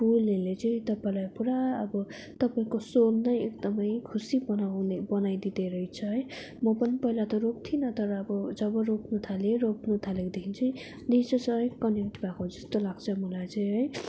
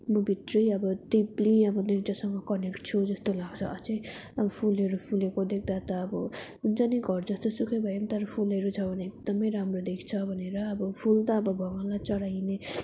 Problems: none marked